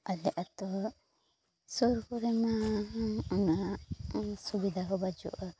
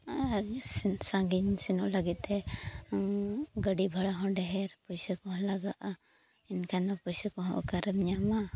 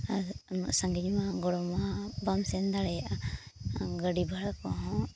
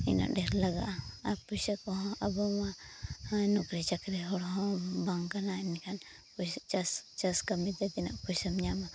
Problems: background sounds at intervals